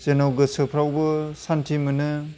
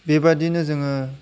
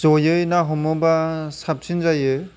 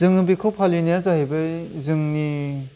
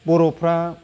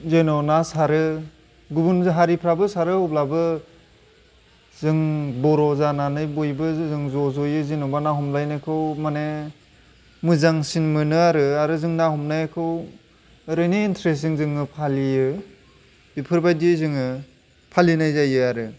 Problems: background sounds at intervals